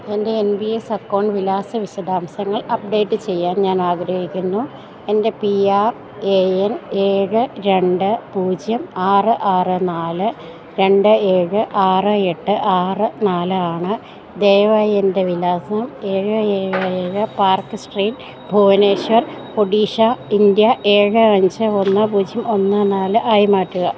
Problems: none marked